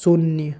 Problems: low volume